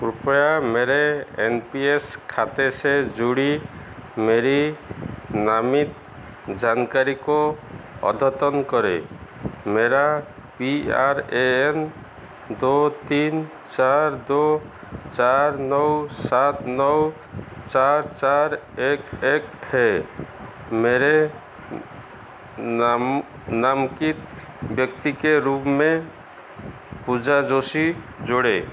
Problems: constant background noise, echo